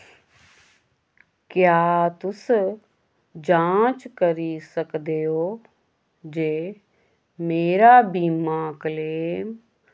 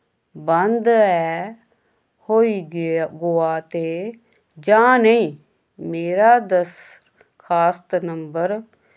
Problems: none marked